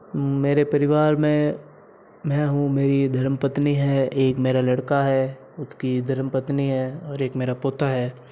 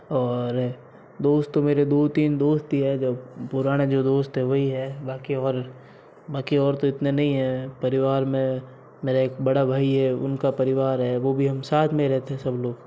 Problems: constant background noise